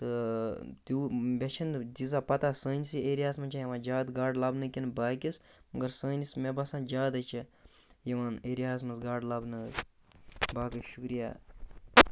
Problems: constant background noise